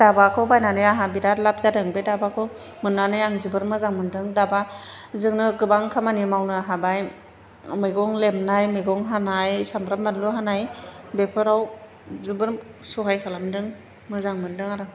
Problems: constant background noise